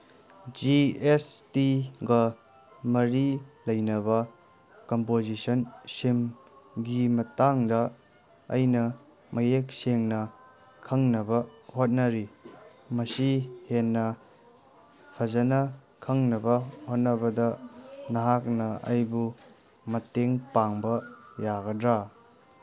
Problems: background sounds at intervals